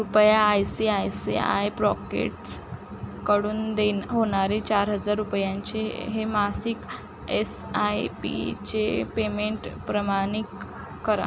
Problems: none marked